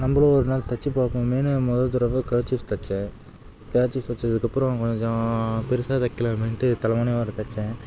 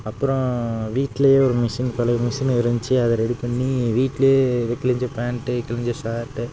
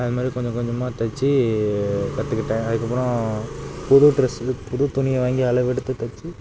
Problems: background sounds at intervals